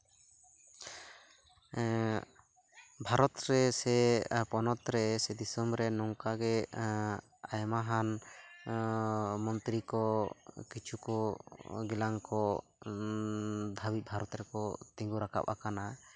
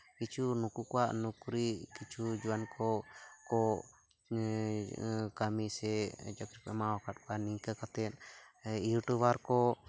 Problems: background sounds at intervals